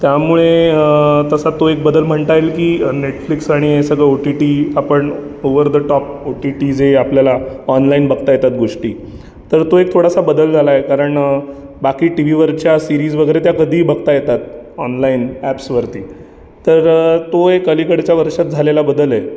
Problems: background sounds at intervals, background conversations at intervals